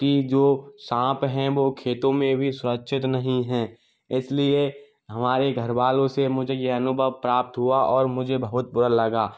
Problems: background sounds at intervals